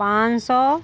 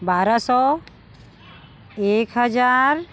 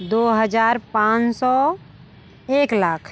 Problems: none marked